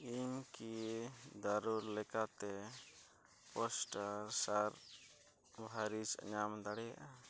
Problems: none marked